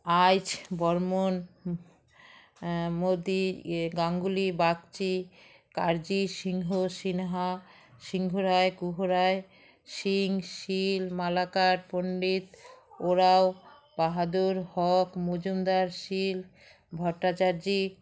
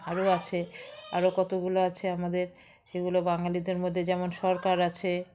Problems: continuous background conversations